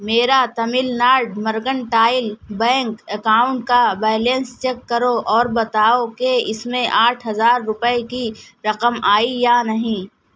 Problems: none marked